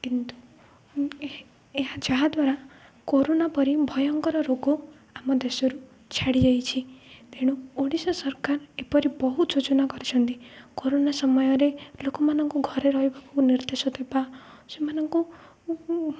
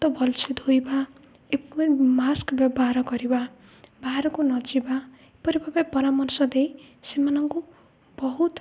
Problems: low volume